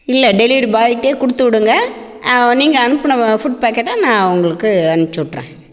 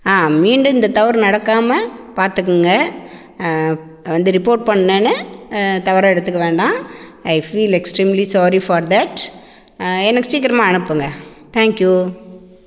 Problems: echo